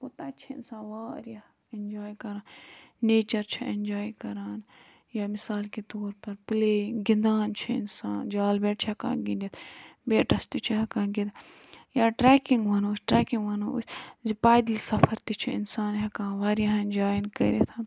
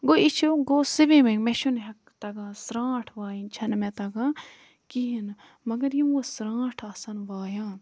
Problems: low volume